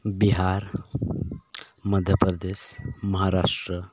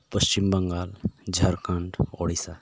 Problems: background sounds at intervals